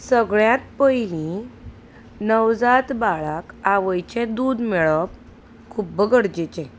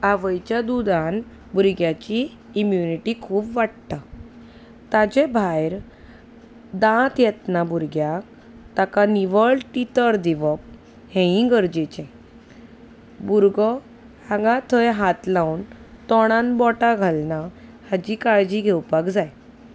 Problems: none marked